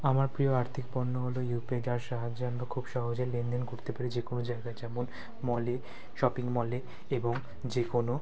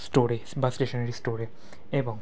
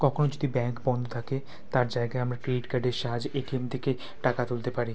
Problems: none marked